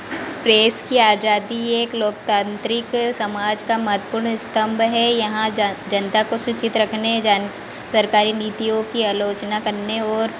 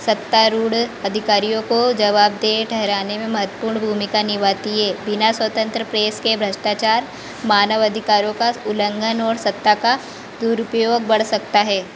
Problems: constant background noise, background conversations at intervals